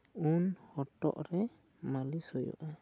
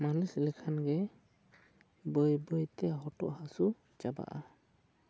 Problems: low volume